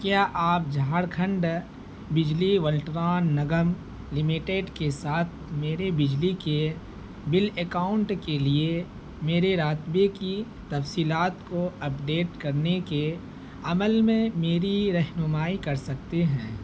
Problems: constant background noise